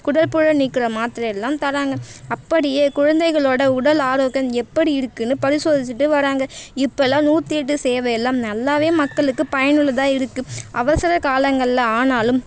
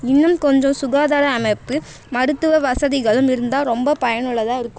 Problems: none marked